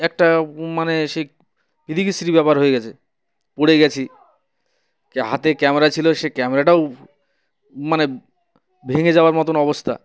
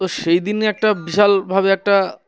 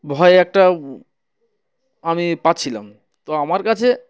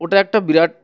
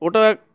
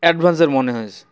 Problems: constant background noise, background conversations at intervals